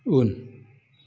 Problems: low volume